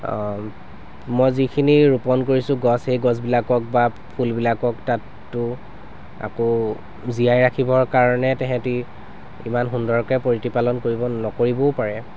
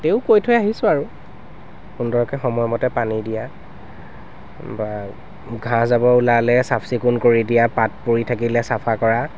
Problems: constant background noise